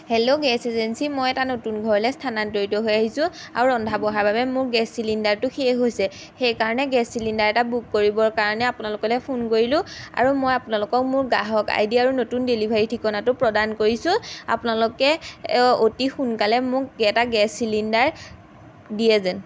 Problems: background sounds at intervals